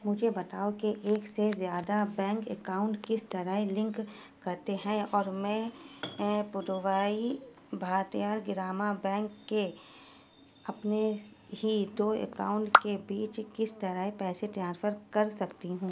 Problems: background sounds at intervals